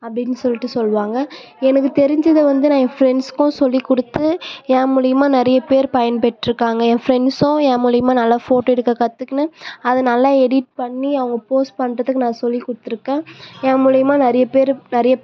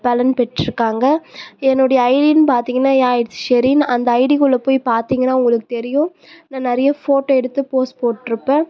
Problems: none marked